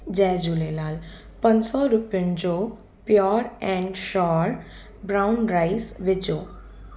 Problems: constant background noise, echo